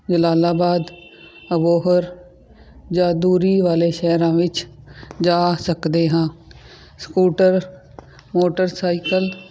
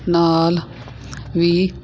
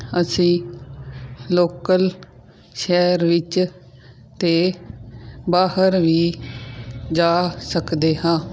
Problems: none marked